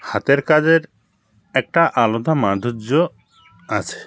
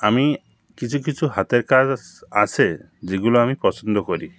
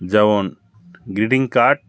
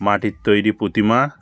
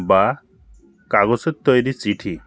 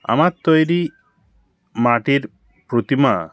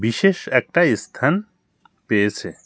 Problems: constant background noise